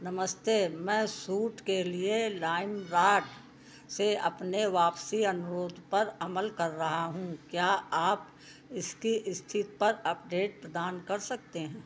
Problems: background sounds at intervals